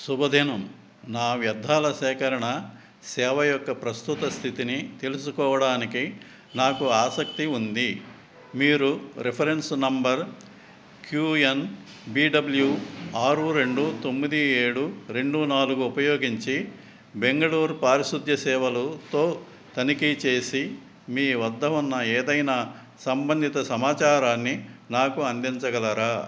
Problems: none marked